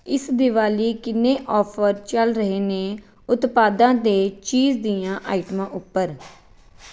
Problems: background sounds at intervals